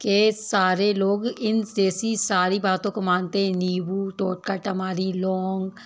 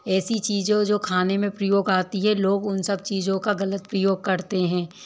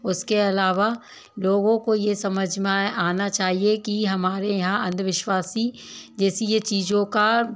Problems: constant background noise